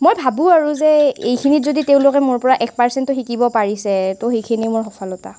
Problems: constant background noise